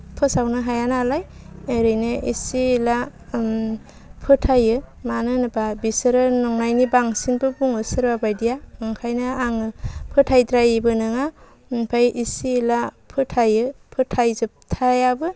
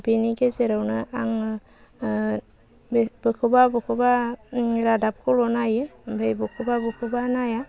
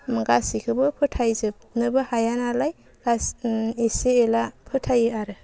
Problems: none marked